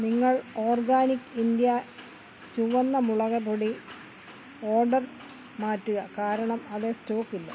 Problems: constant background noise